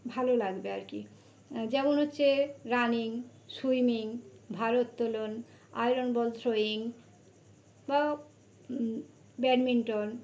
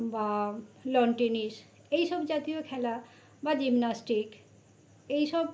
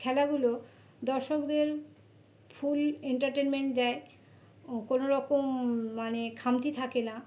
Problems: none marked